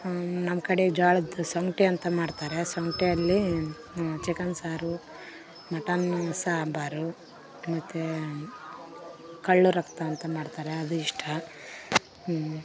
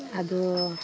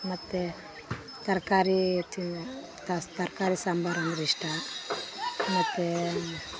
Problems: background sounds at intervals